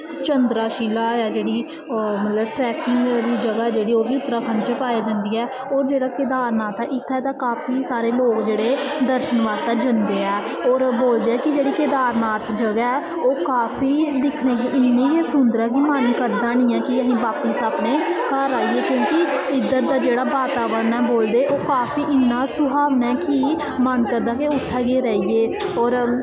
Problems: constant background noise, echo